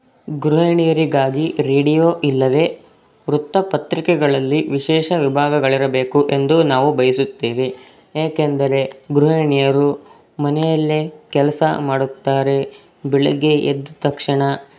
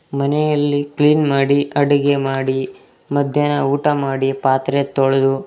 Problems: background sounds at intervals